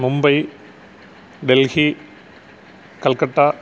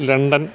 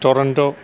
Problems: constant background noise